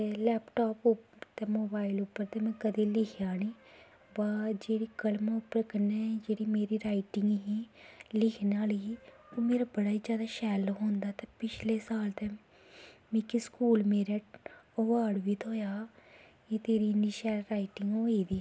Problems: constant background noise